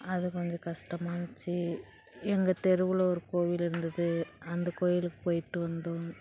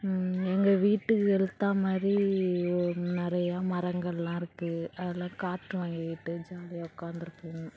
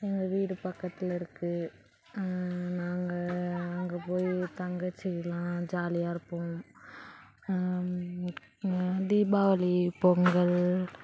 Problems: background sounds at intervals, background conversations at intervals